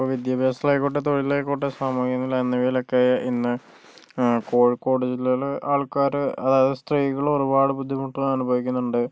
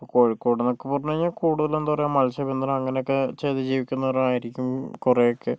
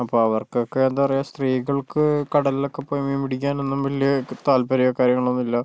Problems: none marked